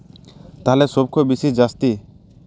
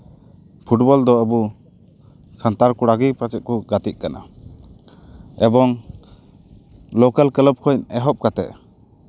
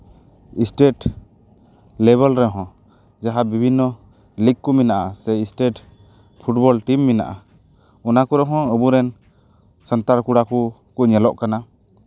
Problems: none marked